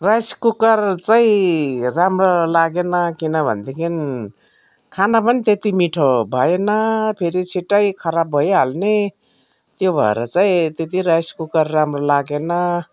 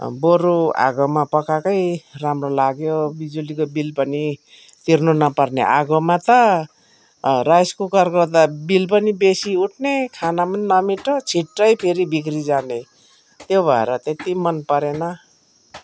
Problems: background sounds at intervals